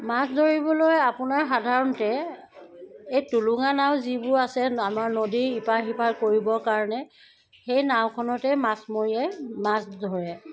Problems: background sounds at intervals